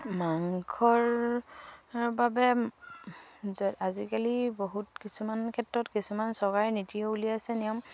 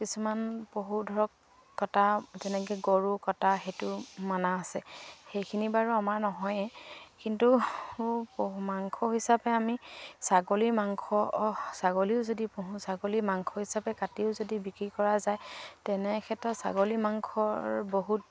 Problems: none marked